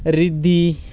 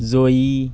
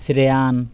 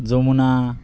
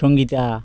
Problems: background sounds at intervals